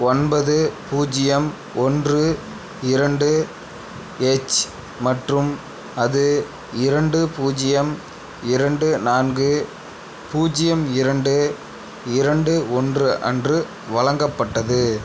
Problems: constant background noise